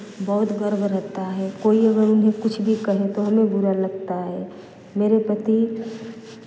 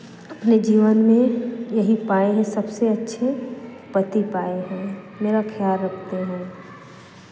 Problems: constant background noise